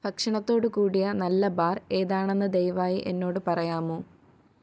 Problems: none marked